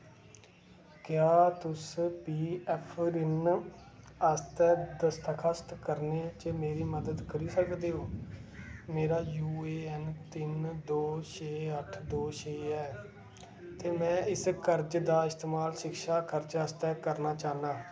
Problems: constant background noise